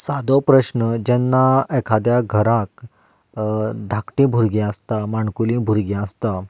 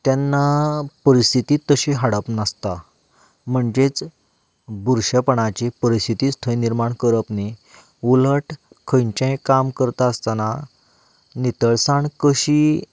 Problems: background sounds at intervals